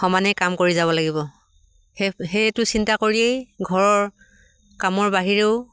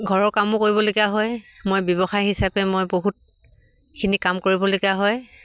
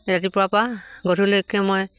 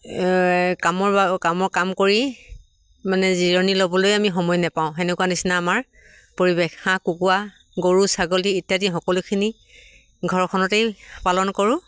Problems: none marked